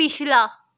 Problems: none marked